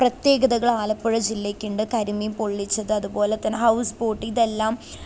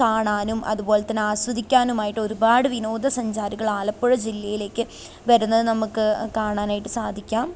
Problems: constant background noise, low volume